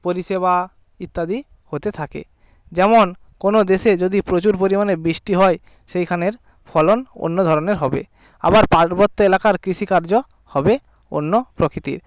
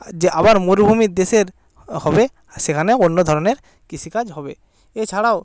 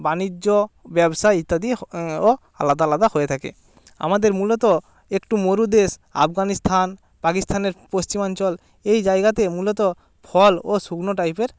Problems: background sounds at intervals